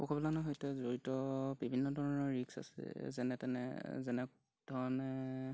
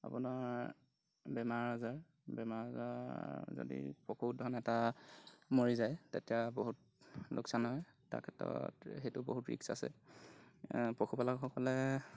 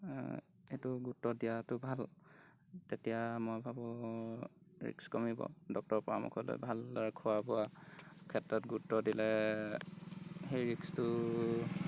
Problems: background sounds at intervals